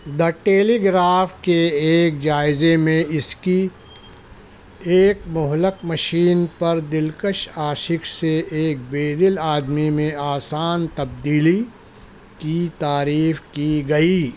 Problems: none marked